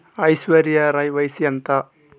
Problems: constant background noise, background conversations at intervals